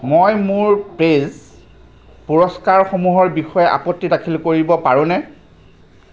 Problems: background sounds at intervals